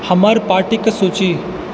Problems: constant background noise